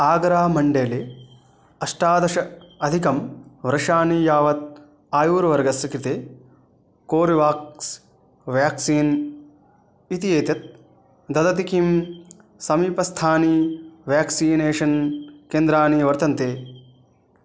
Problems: none marked